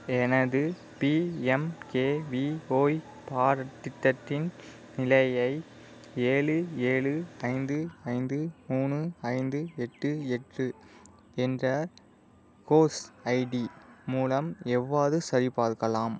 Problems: background sounds at intervals